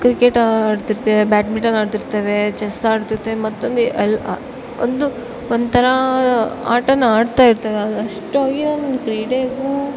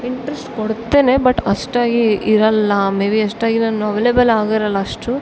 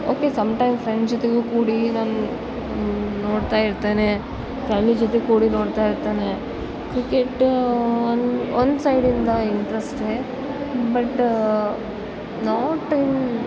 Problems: background sounds at intervals